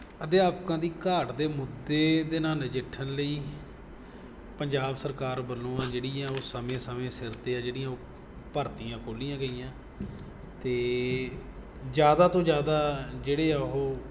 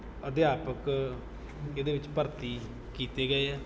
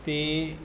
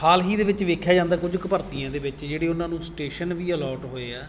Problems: background sounds at intervals